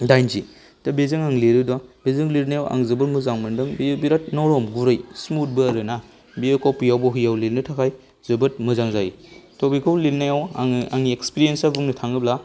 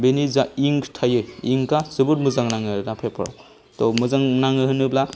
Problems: none marked